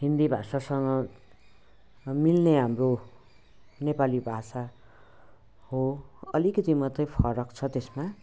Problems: none marked